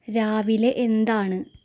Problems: background sounds at intervals